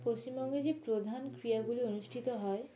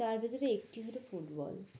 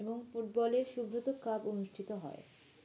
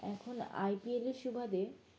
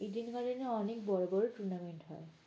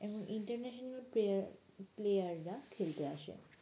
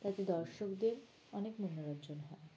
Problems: background sounds at intervals